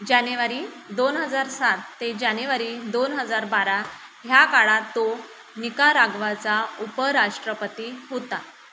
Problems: constant background noise